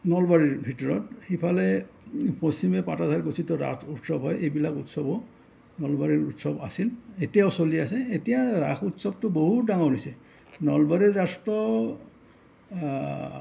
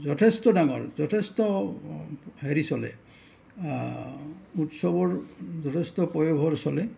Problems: none marked